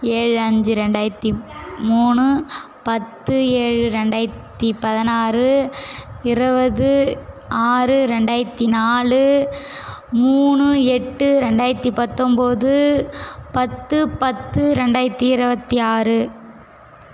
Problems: constant background noise, background conversations at intervals